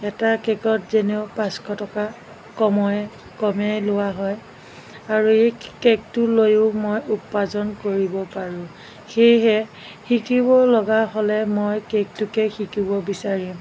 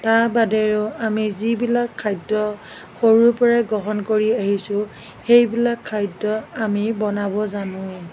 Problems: background sounds at intervals